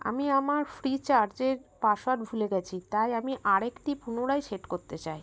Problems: none marked